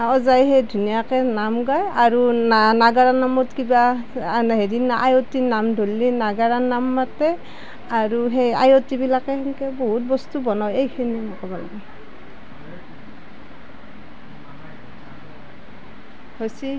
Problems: background sounds at intervals